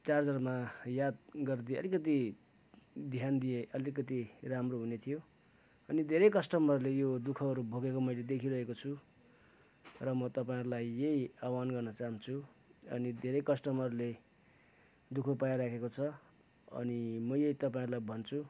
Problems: background sounds at intervals